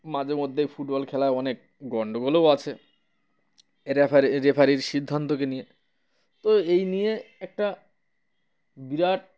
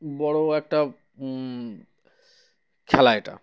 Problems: none marked